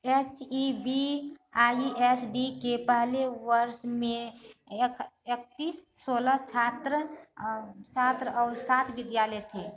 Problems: constant background noise, continuous background conversations